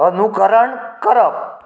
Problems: continuous background conversations, echo